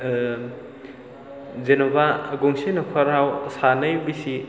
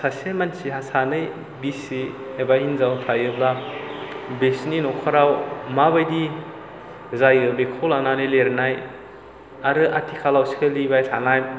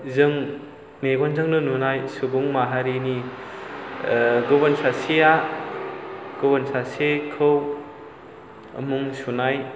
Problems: low volume